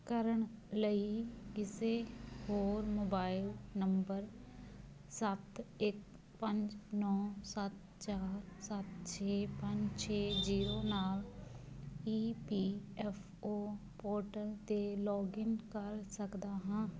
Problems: none marked